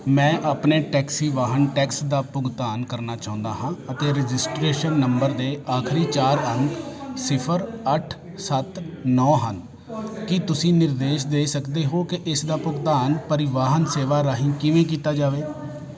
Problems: constant background noise, continuous background conversations